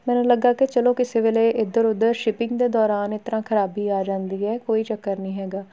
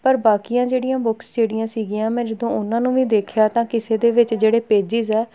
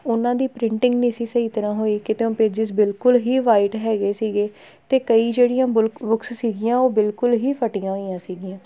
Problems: background sounds at intervals